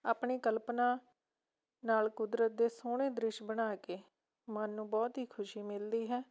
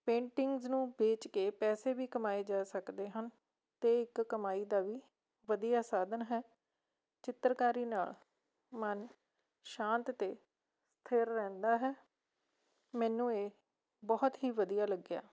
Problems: none marked